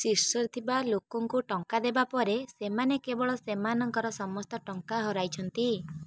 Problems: none marked